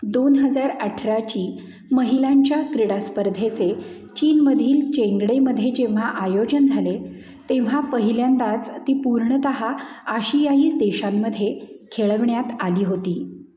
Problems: constant background noise